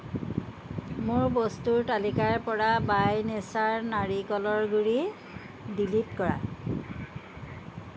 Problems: background sounds at intervals